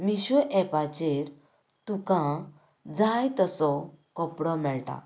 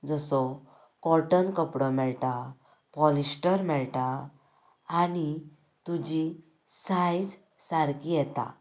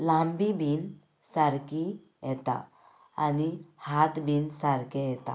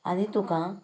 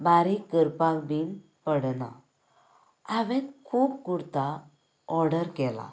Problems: none marked